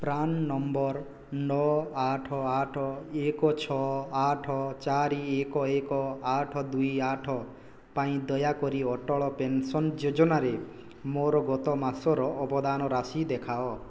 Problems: none marked